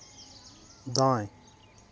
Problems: none marked